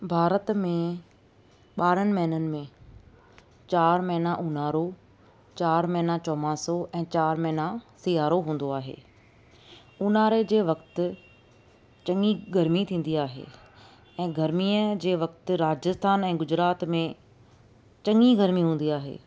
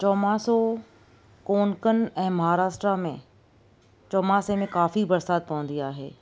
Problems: none marked